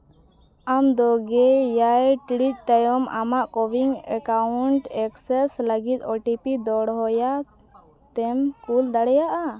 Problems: background conversations at intervals